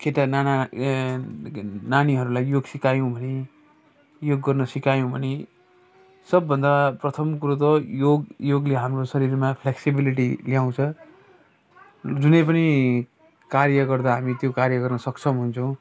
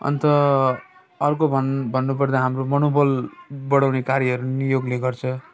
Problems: background sounds at intervals